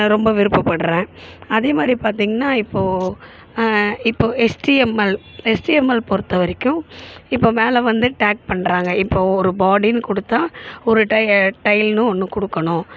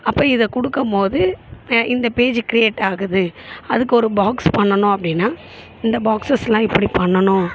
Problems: background sounds at intervals